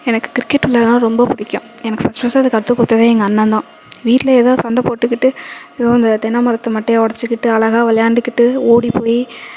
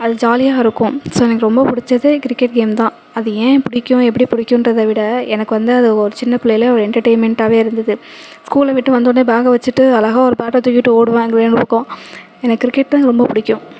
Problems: none marked